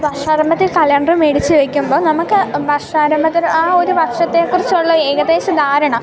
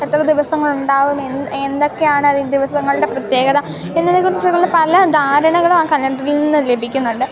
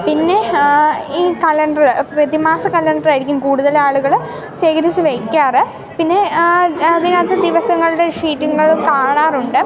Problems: constant background noise